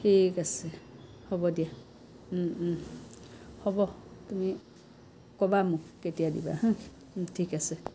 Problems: none marked